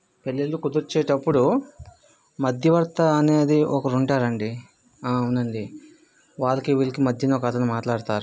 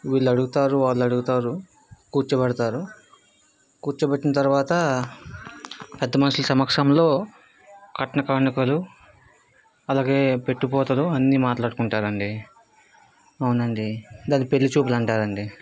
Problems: background sounds at intervals